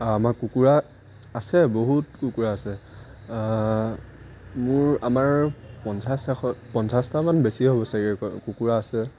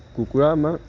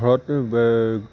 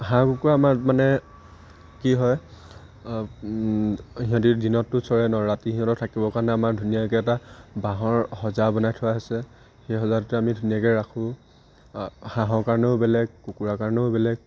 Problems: constant background noise